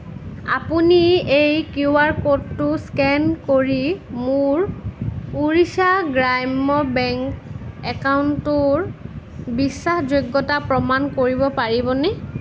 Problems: constant background noise